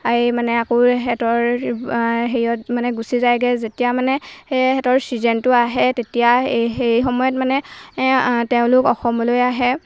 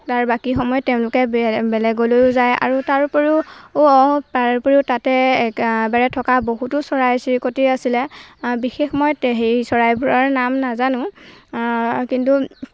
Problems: background sounds at intervals